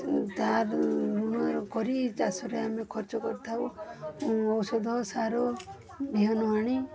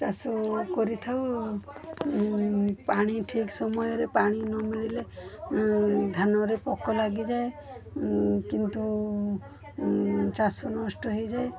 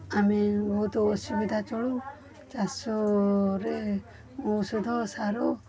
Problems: constant background noise, continuous background conversations